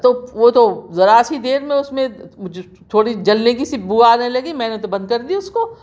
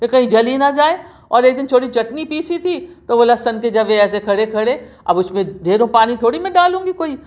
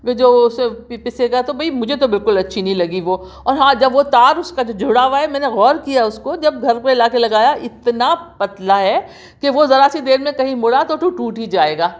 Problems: none marked